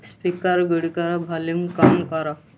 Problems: constant background noise